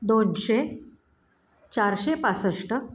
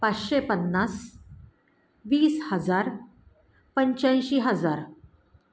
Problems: none marked